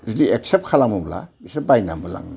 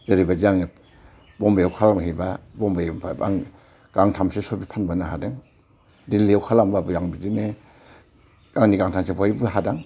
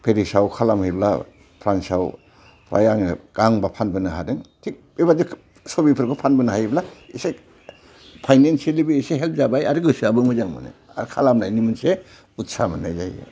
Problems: none marked